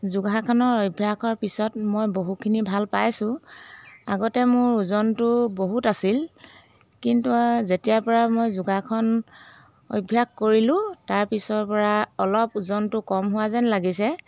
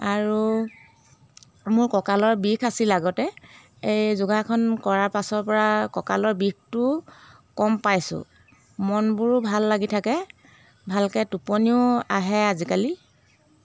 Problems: background sounds at intervals